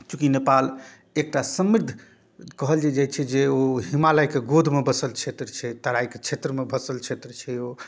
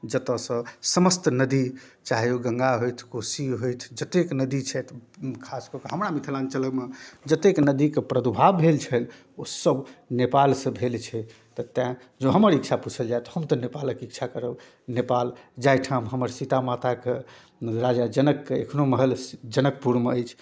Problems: none marked